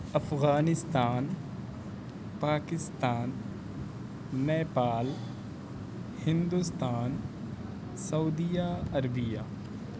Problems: constant background noise, low volume